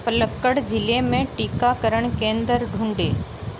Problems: none marked